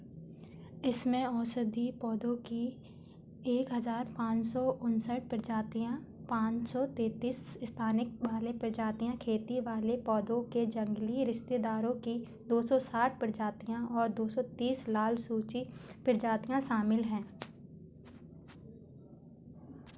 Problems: background sounds at intervals